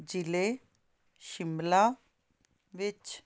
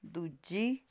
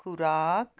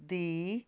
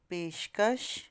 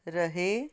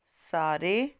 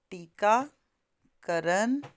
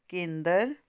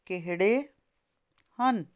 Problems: constant background noise